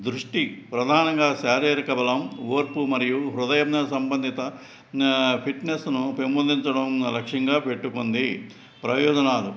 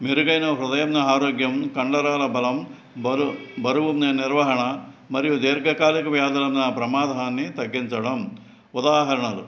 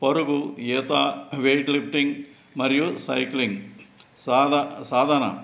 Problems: background sounds at intervals